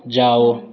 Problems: constant background noise